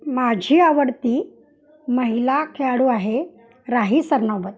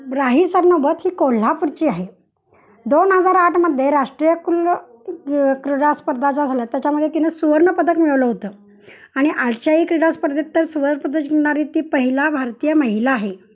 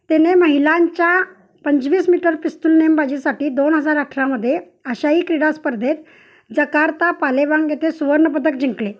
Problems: background sounds at intervals